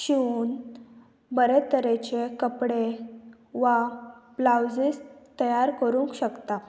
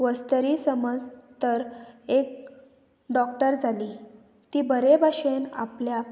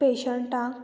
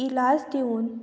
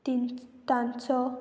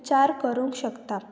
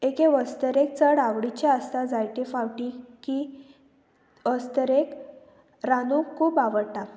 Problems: none marked